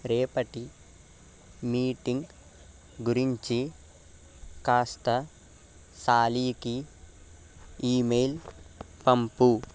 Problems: none marked